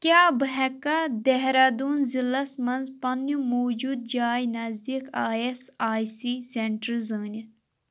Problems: none marked